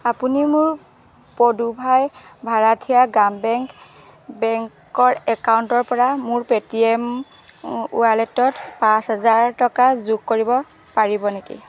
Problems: none marked